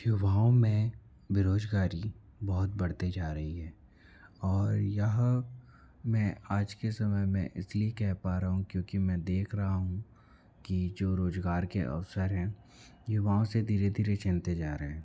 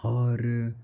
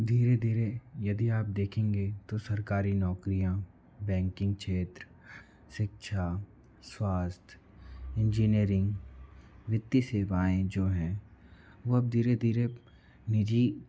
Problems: none marked